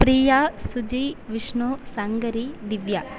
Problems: constant background noise